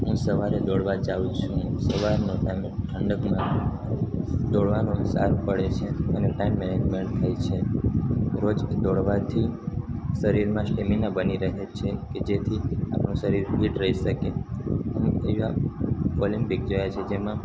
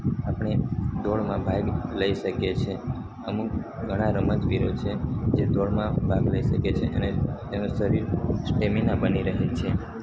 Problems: constant background noise